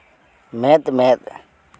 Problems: none marked